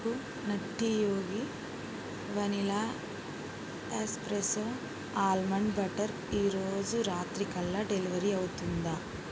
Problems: none marked